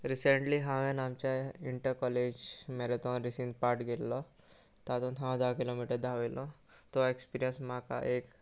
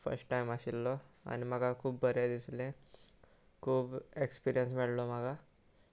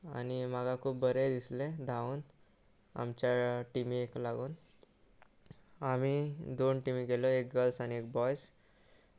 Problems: none marked